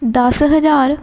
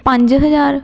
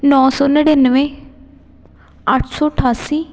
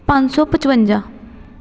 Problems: continuous background conversations